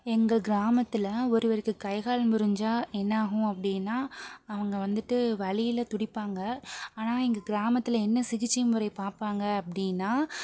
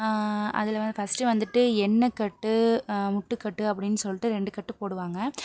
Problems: background sounds at intervals, background conversations at intervals